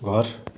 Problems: none marked